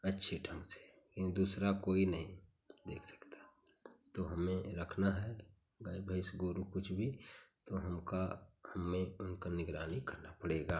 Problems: none marked